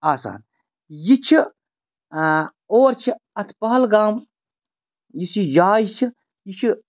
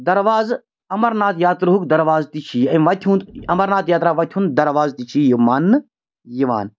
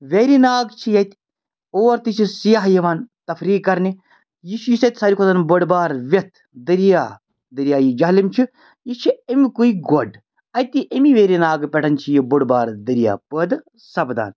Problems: background sounds at intervals